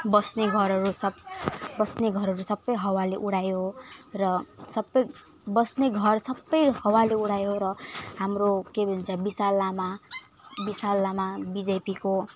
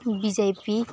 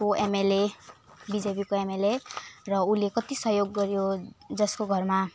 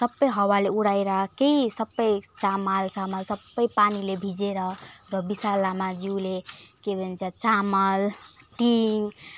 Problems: none marked